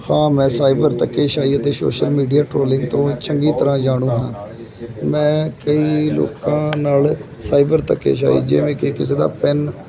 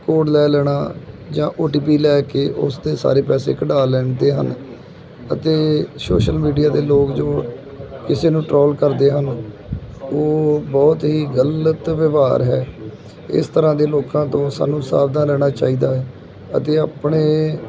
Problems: background sounds at intervals